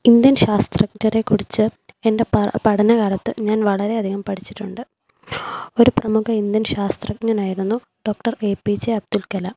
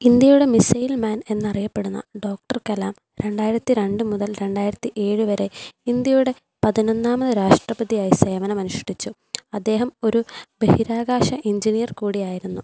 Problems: none marked